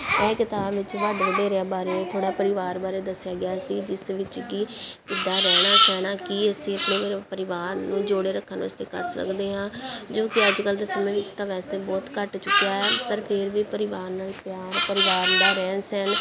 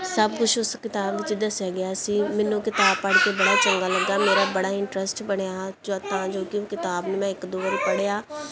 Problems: background sounds at intervals